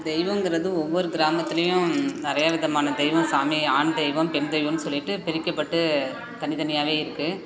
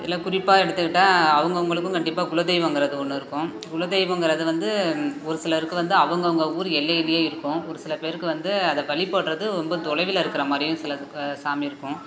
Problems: constant background noise